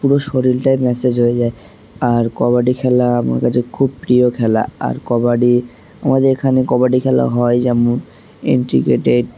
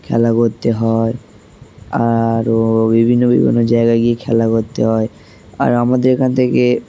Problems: constant background noise